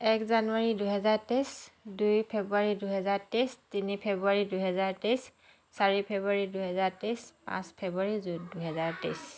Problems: background conversations at intervals